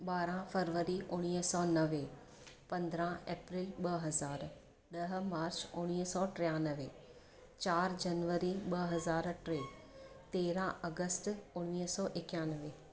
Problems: constant background noise, low volume